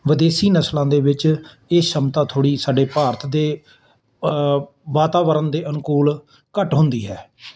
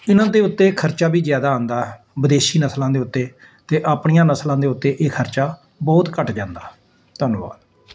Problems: constant background noise